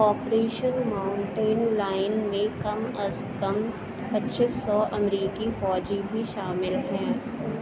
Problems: constant background noise